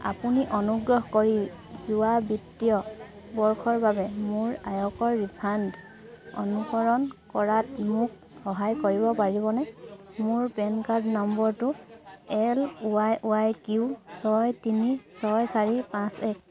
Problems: constant background noise, continuous background conversations